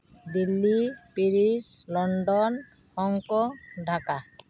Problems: background sounds at intervals